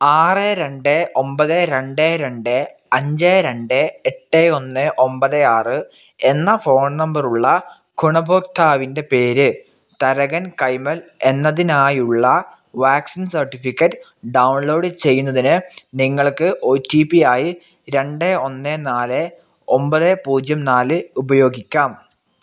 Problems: none marked